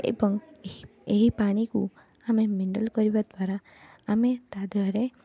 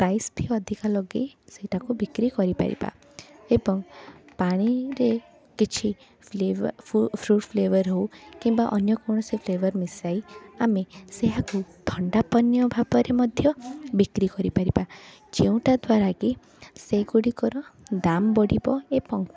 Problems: continuous background conversations